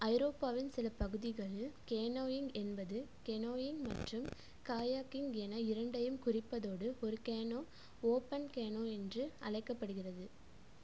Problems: low volume